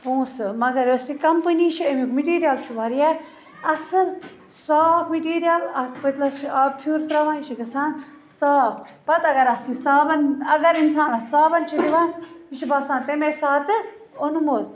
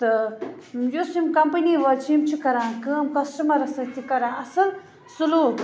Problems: constant background noise